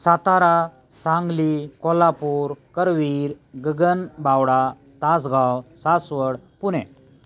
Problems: none marked